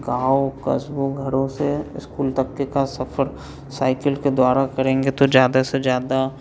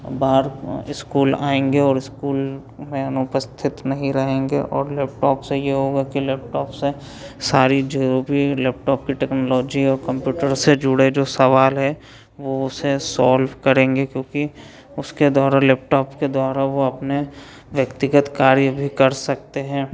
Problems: background sounds at intervals